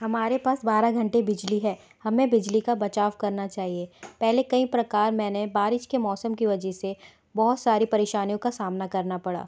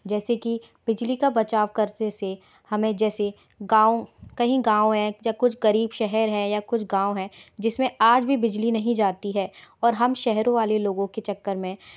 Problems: background sounds at intervals